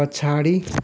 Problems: background sounds at intervals